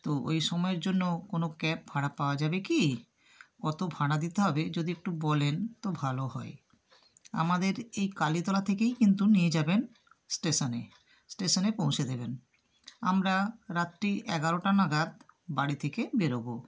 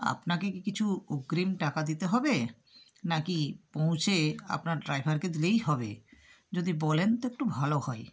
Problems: none marked